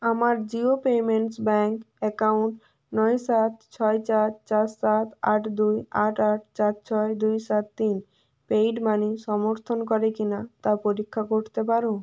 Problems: none marked